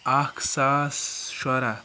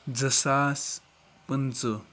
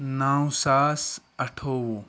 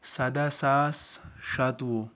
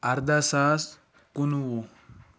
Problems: none marked